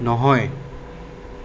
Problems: constant background noise